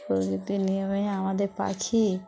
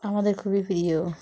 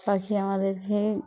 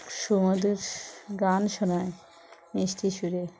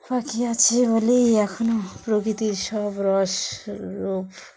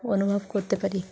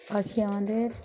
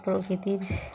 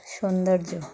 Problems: constant background noise, background conversations at intervals